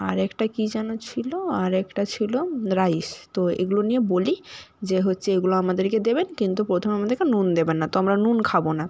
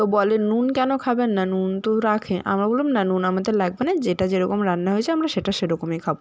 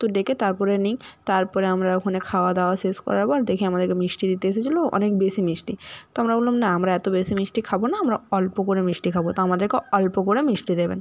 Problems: background sounds at intervals